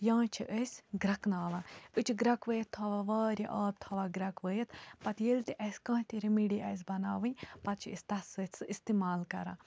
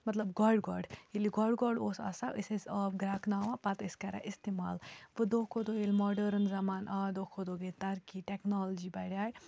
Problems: constant background noise